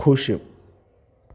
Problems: constant background noise